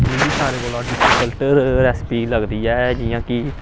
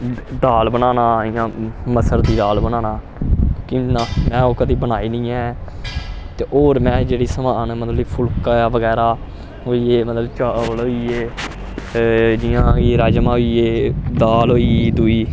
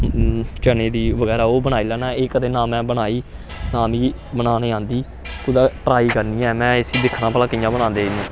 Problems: constant background noise